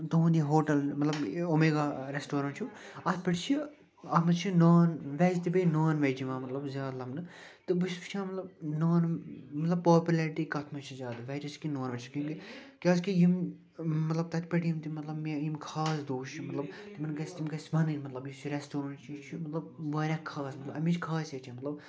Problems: constant background noise, continuous background conversations